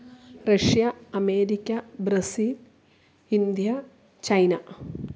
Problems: none marked